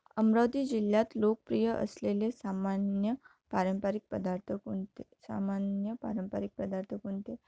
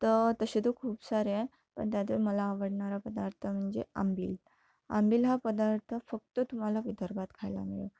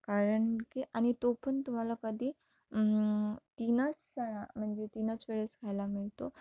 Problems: none marked